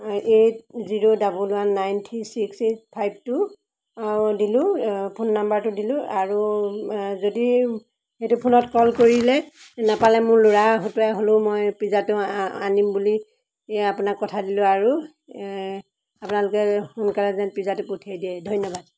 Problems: background sounds at intervals